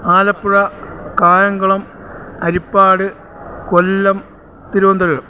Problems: none marked